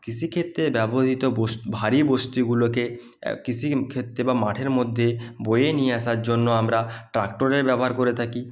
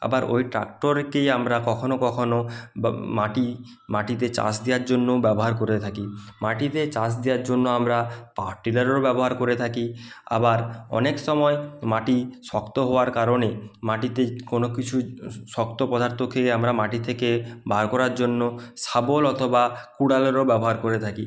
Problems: none marked